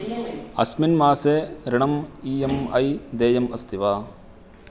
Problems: constant background noise